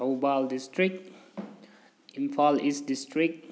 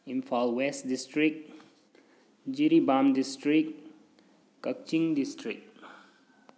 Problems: background sounds at intervals